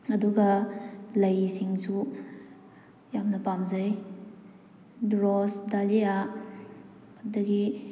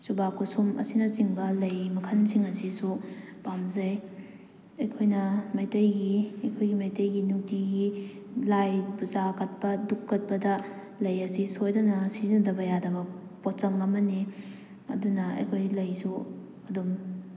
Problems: none marked